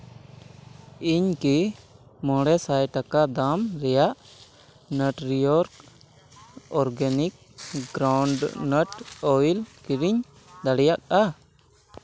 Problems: background sounds at intervals